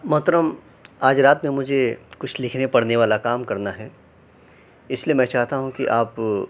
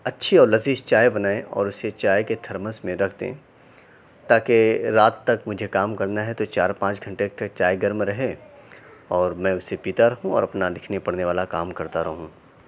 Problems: none marked